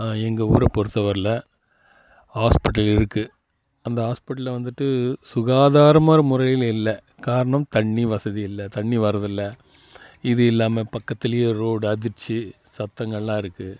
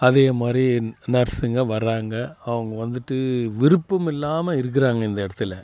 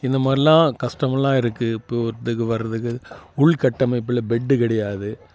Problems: constant background noise